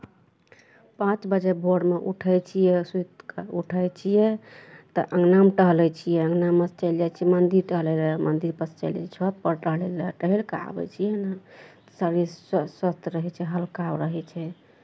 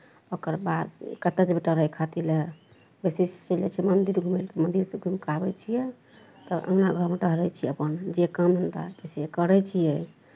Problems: none marked